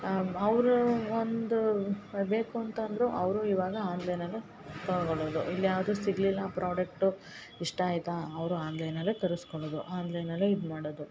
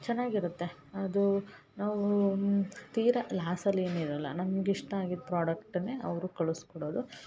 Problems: background sounds at intervals